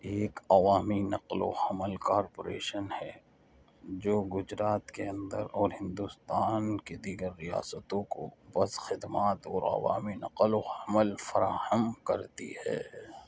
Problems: constant background noise, low volume